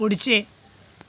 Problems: constant background noise